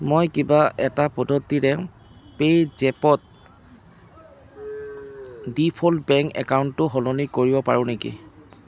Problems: constant background noise